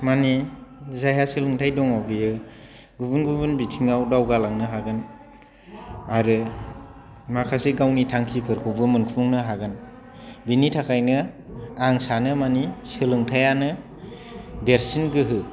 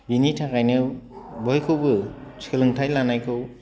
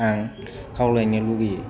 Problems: none marked